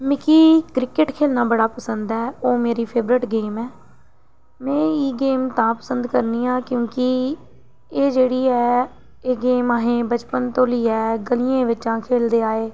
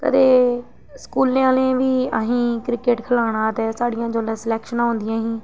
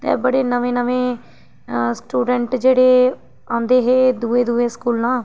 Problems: none marked